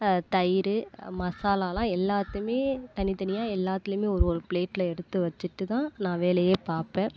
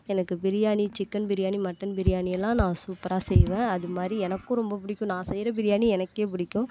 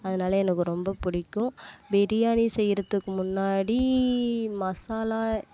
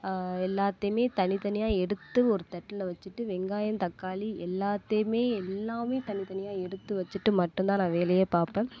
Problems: constant background noise